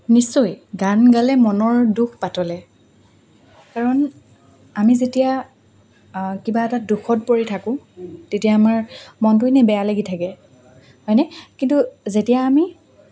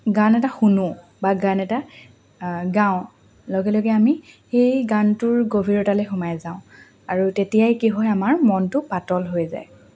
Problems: constant background noise, background conversations at intervals